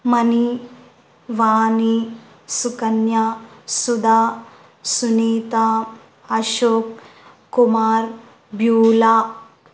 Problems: none marked